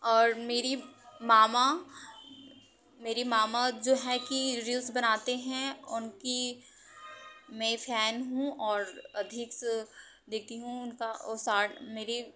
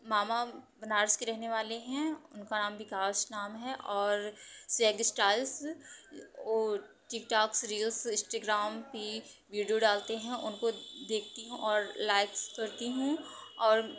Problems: constant background noise, background conversations at intervals